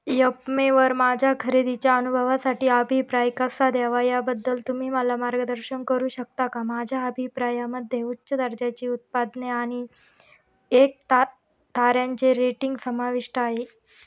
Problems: background sounds at intervals